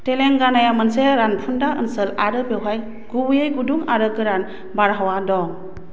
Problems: none marked